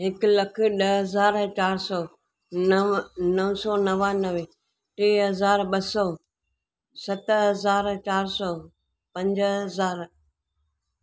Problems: none marked